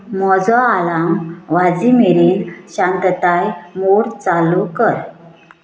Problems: constant background noise